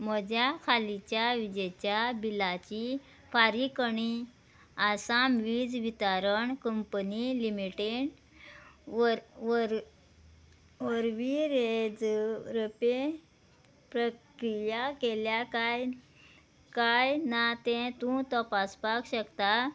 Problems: background sounds at intervals, background conversations at intervals